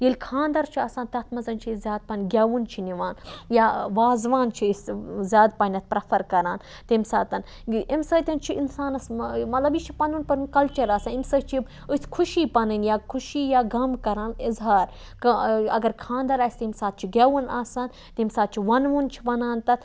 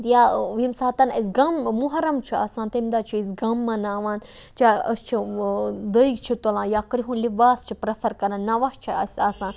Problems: background sounds at intervals